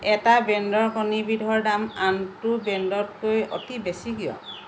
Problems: constant background noise